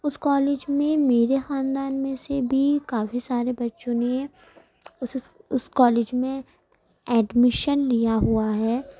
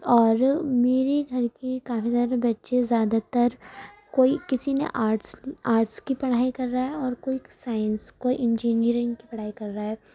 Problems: none marked